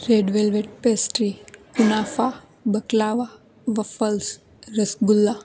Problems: constant background noise